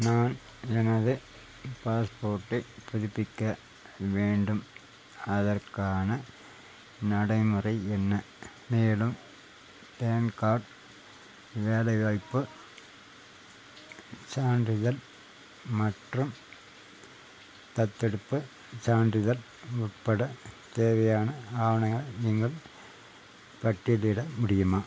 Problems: constant background noise